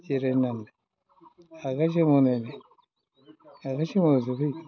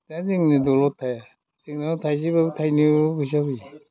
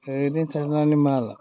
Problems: background sounds at intervals